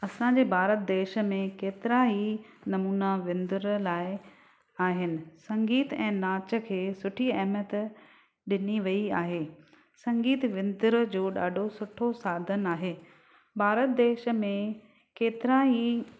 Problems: none marked